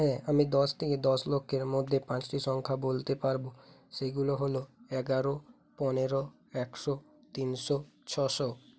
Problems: background sounds at intervals